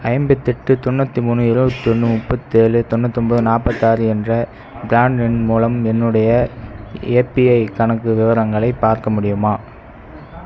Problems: background sounds at intervals